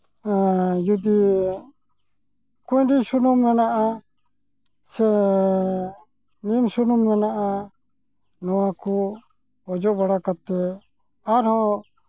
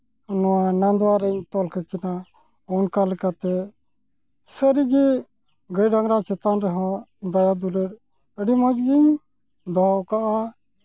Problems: none marked